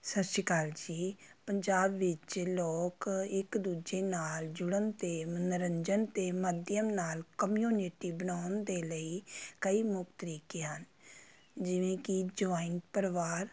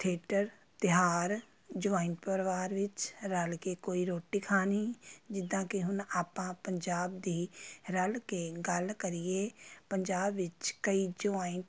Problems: constant background noise